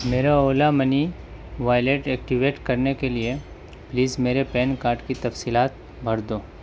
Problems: none marked